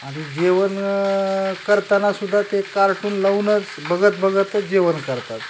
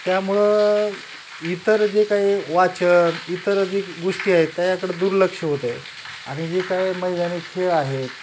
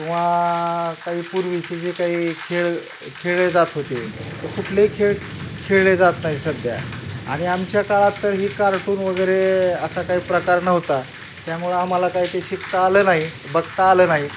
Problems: constant background noise